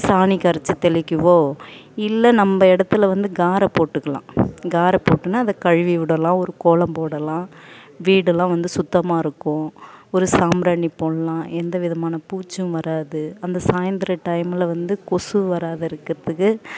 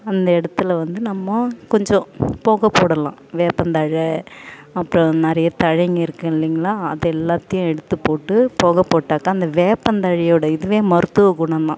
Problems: background sounds at intervals